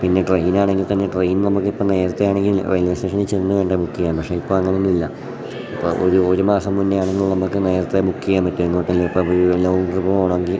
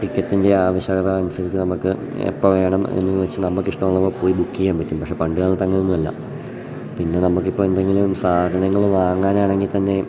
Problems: none marked